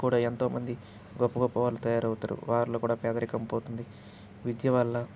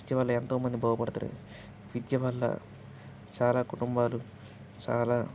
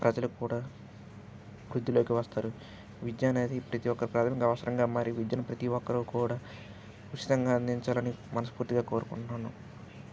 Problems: constant background noise